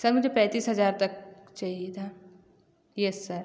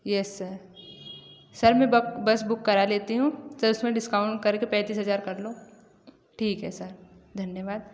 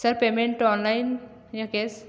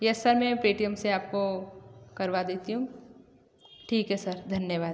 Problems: echo